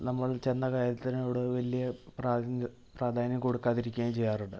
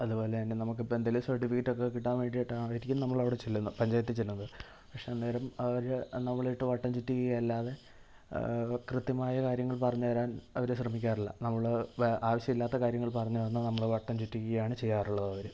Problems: low volume